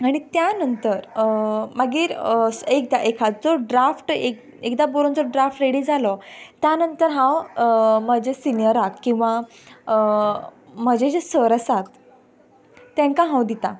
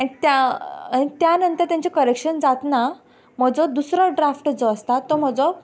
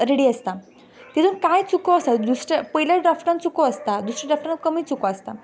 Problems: background sounds at intervals